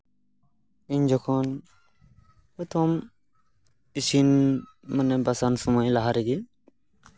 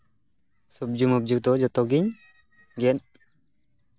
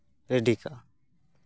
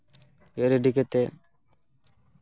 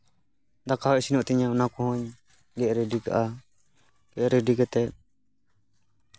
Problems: none marked